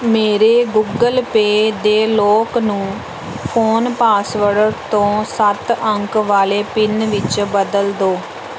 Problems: background sounds at intervals